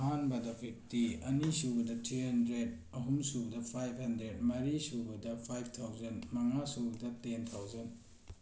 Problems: none marked